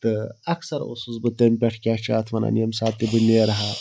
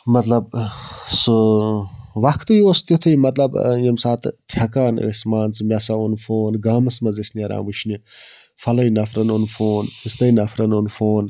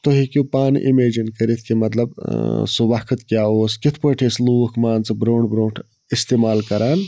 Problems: background sounds at intervals